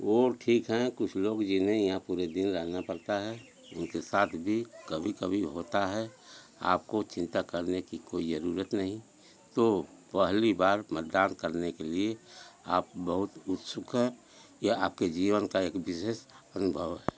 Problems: none marked